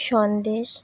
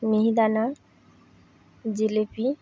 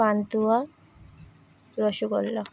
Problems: constant background noise